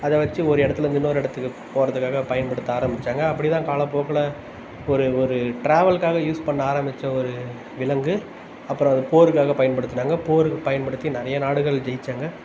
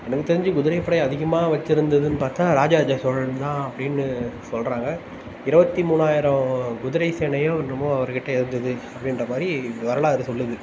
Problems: none marked